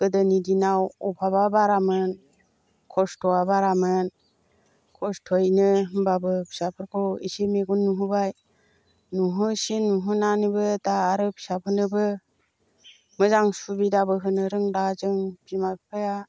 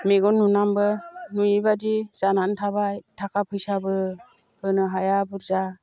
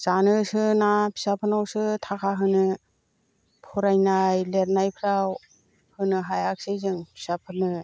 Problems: constant background noise